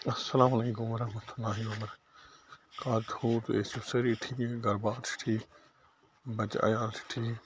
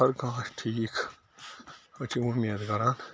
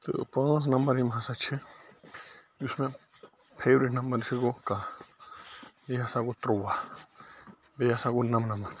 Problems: constant background noise